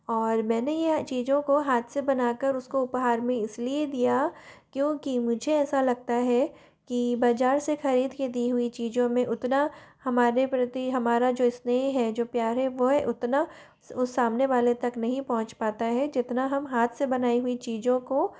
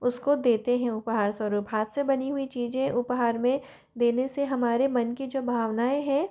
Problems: none marked